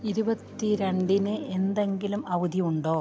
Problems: background sounds at intervals